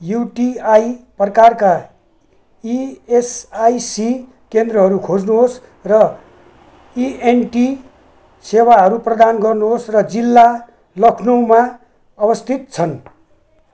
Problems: background sounds at intervals